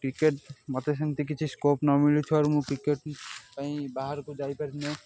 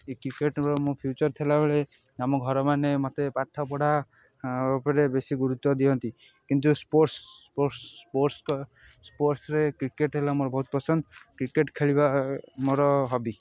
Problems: constant background noise